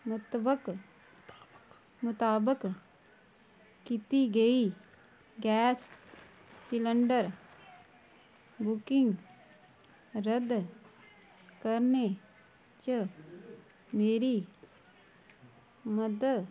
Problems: low volume